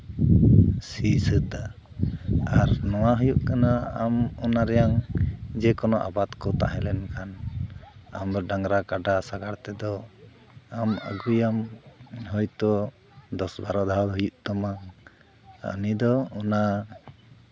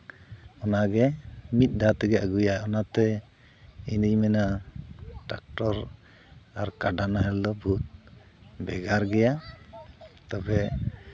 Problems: constant background noise, background conversations at intervals